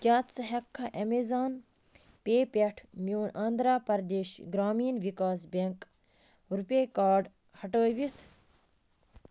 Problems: constant background noise